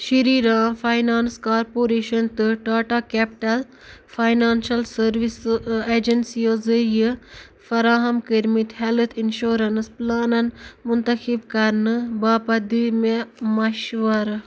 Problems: background sounds at intervals